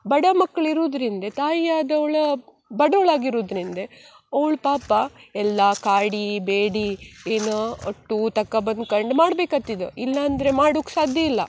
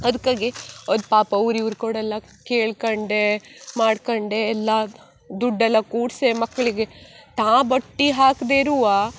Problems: none marked